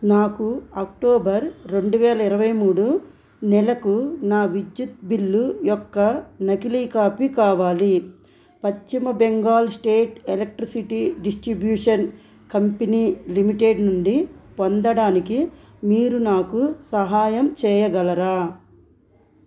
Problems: constant background noise